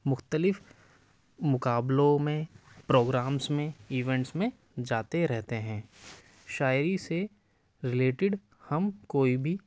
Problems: none marked